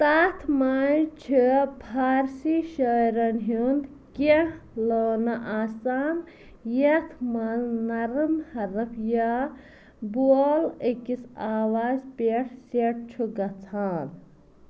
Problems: constant background noise